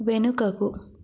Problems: none marked